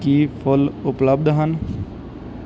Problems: background sounds at intervals